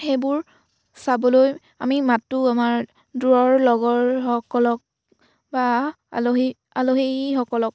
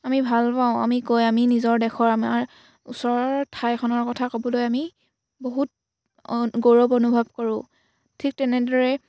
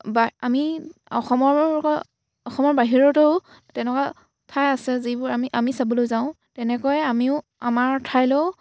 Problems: background sounds at intervals